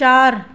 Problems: constant background noise